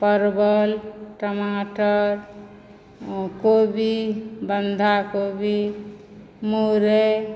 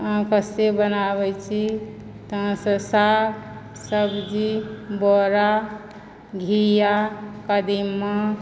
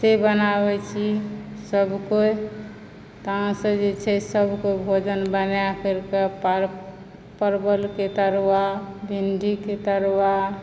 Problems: background sounds at intervals